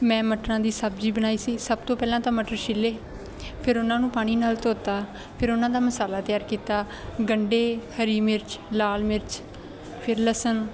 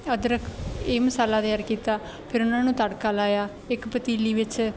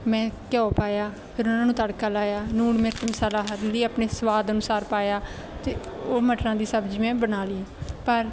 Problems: none marked